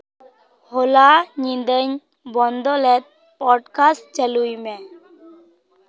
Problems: none marked